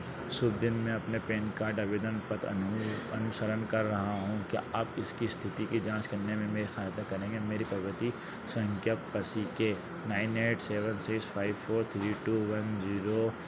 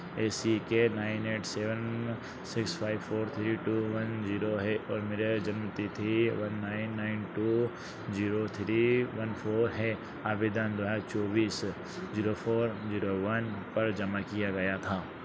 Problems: none marked